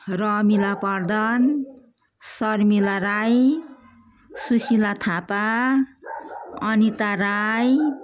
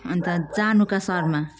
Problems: continuous background conversations